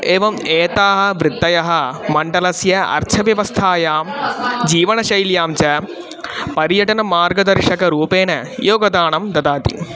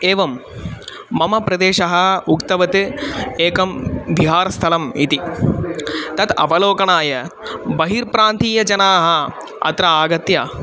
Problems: constant background noise, continuous background conversations